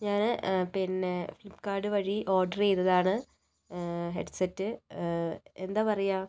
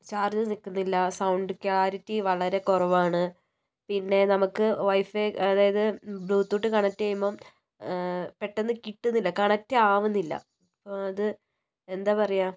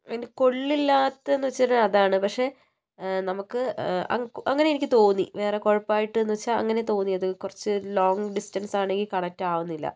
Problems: low volume